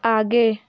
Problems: background sounds at intervals